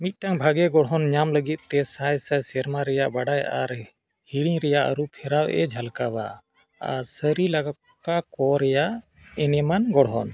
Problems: none marked